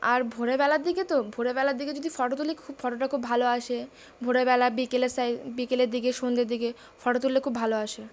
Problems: constant background noise